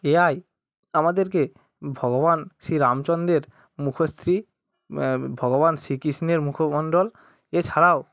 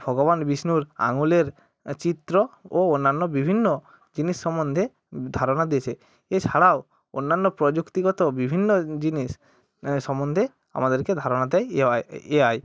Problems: constant background noise